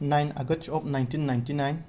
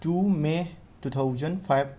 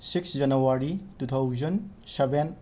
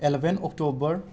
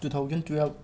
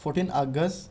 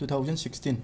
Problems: background sounds at intervals